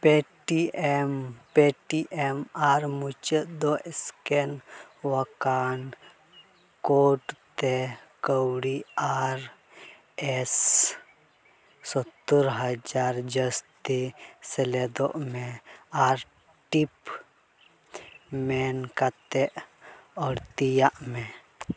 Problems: none marked